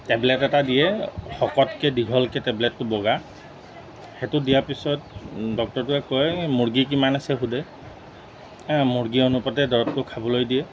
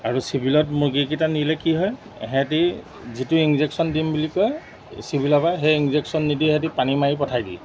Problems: background sounds at intervals